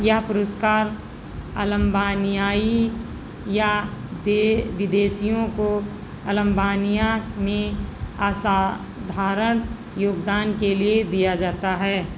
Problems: constant background noise